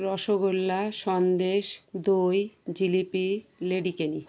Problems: none marked